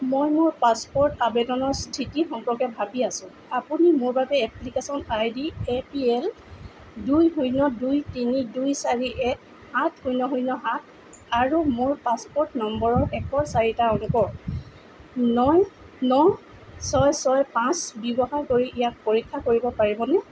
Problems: none marked